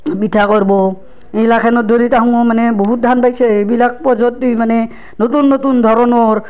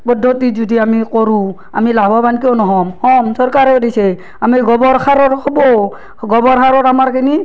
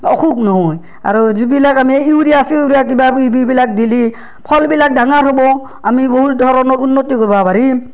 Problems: none marked